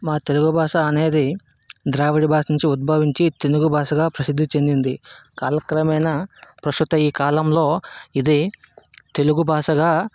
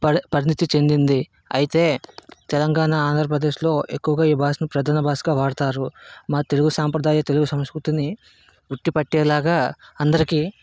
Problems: constant background noise